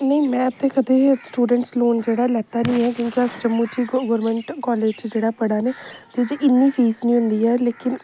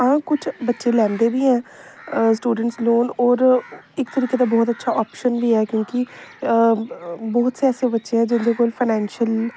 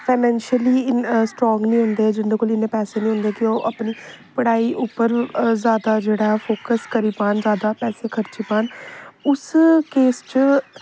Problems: constant background noise